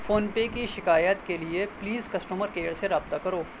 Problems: constant background noise